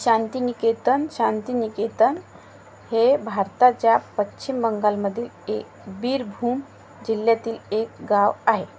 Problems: constant background noise